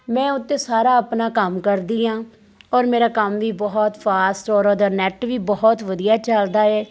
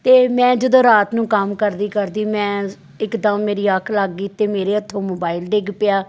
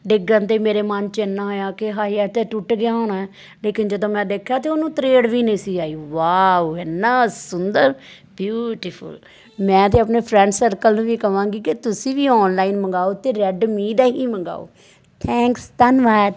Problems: none marked